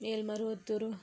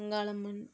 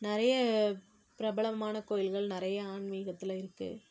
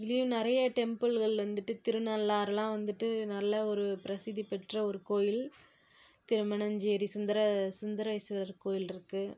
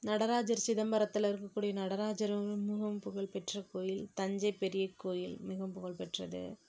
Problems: none marked